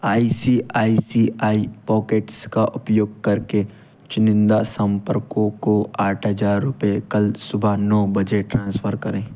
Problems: none marked